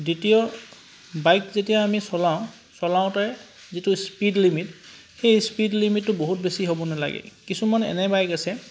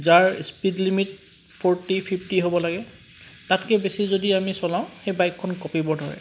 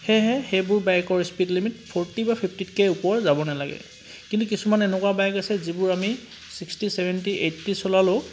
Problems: constant background noise